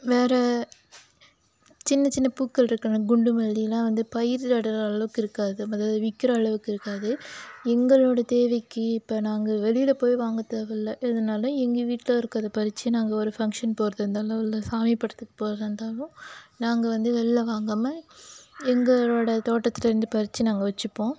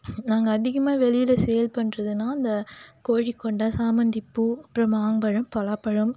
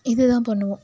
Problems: constant background noise